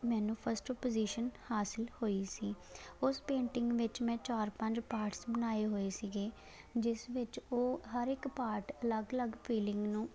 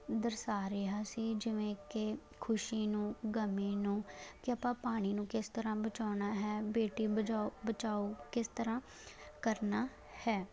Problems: constant background noise